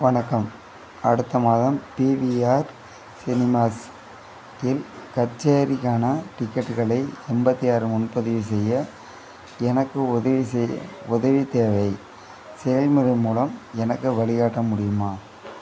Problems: background sounds at intervals